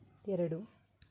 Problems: low volume